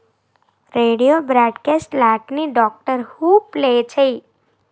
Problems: constant background noise